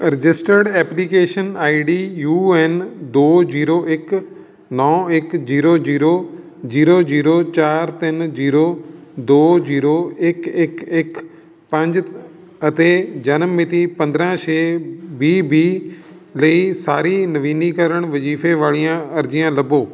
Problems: none marked